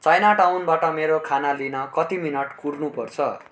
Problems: background sounds at intervals